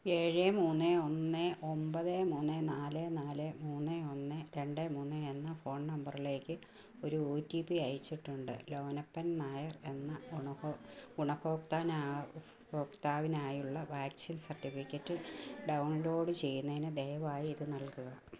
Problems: low volume